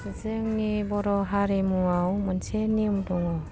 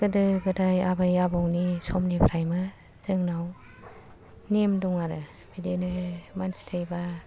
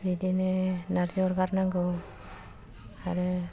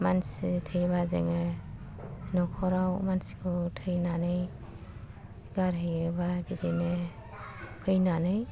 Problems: low volume